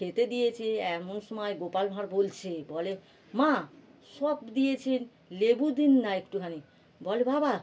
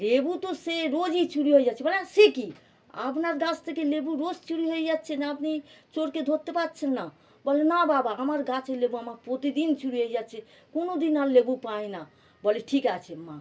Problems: none marked